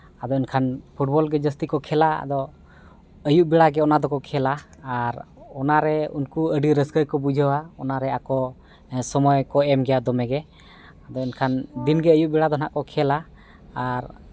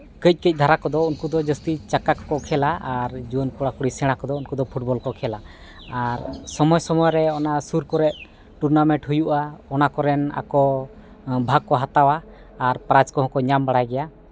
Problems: none marked